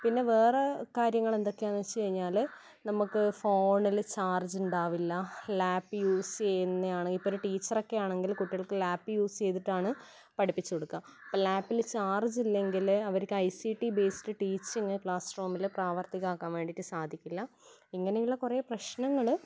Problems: background sounds at intervals